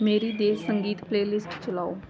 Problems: none marked